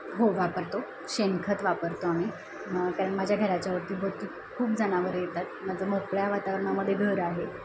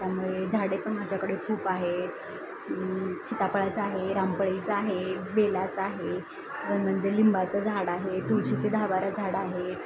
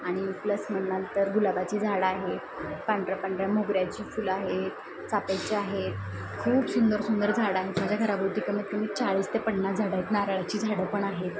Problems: none marked